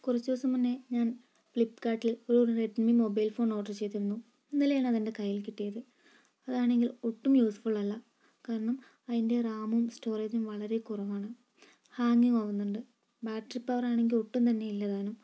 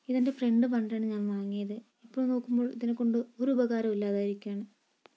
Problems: low volume